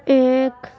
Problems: constant background noise